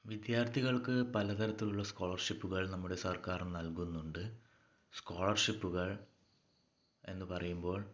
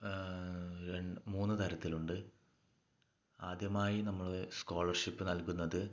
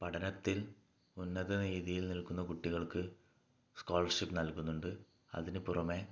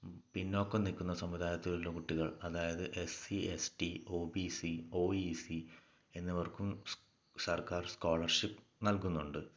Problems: low volume